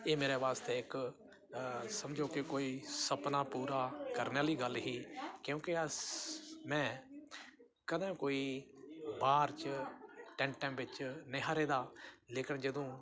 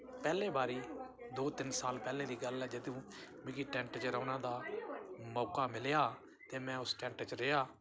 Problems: none marked